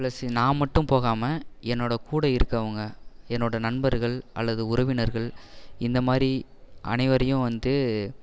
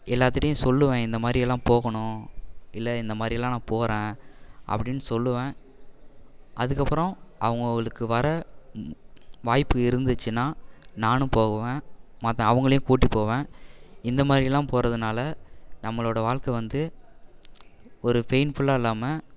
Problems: none marked